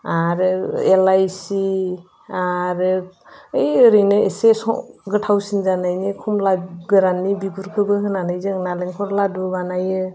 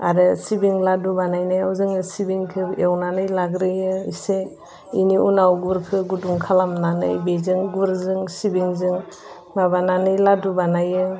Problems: constant background noise